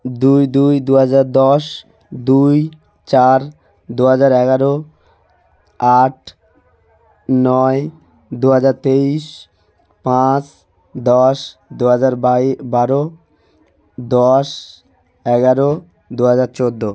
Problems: constant background noise